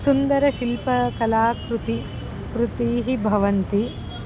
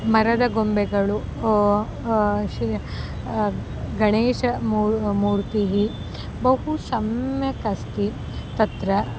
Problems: constant background noise